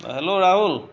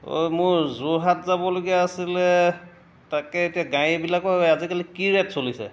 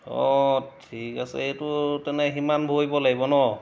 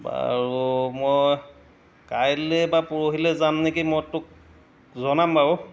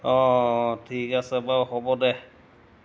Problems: none marked